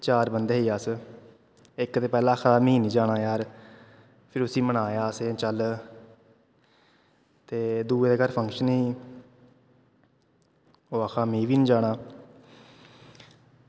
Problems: constant background noise, echo